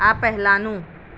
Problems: none marked